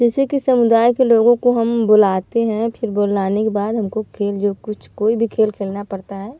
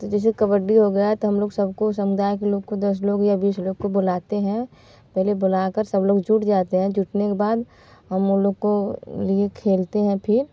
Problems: none marked